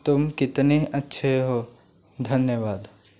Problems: constant background noise